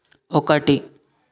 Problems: none marked